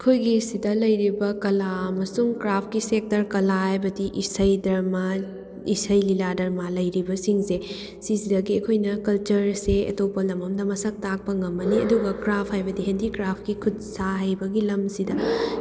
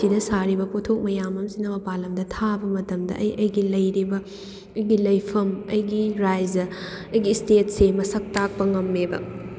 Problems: background sounds at intervals